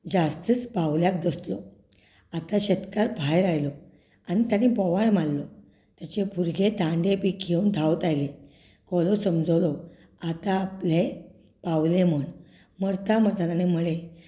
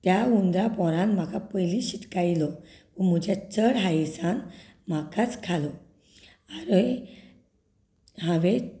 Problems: continuous background conversations